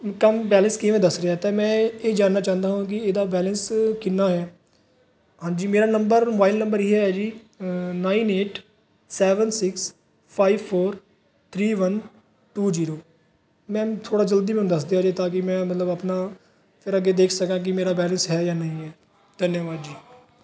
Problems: background sounds at intervals, background conversations at intervals